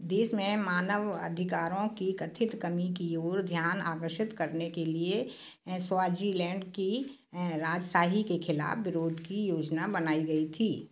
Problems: constant background noise